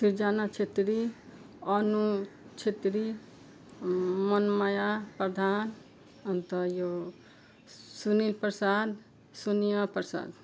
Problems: background sounds at intervals